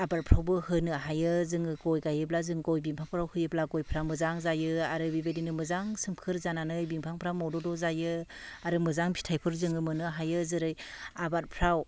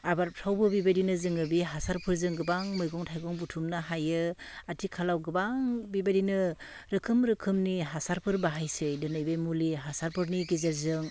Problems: none marked